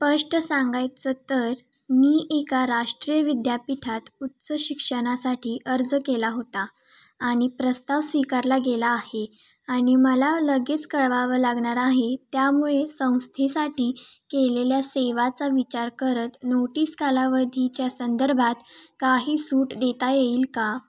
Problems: constant background noise, continuous background conversations